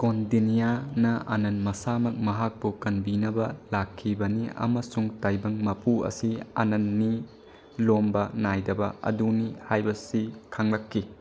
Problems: low volume